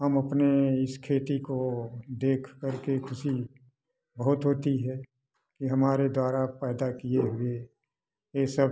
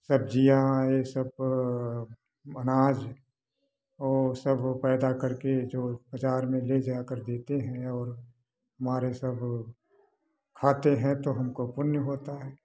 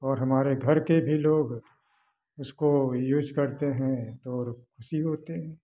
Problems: none marked